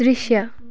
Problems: continuous background conversations